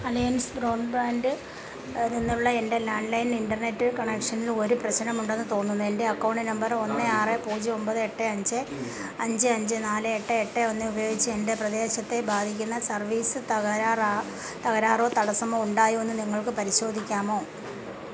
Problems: constant background noise, low volume